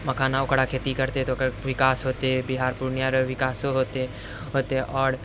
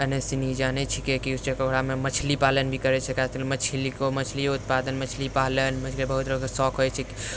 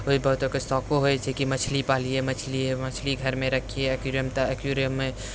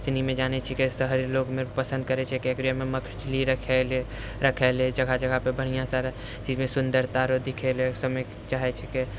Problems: none marked